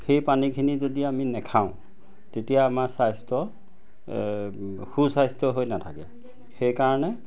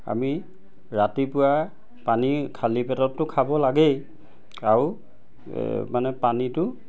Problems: none marked